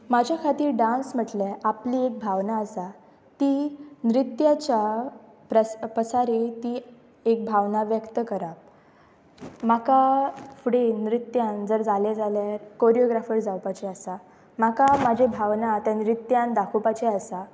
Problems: background sounds at intervals, background conversations at intervals